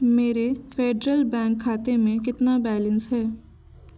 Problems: constant background noise